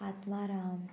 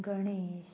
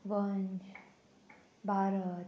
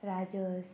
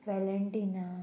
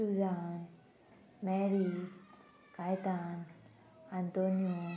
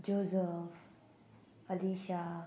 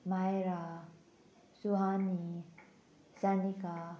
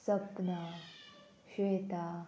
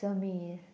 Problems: constant background noise